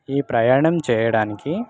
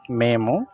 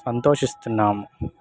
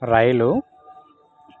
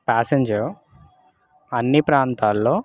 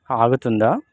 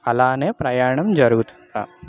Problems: constant background noise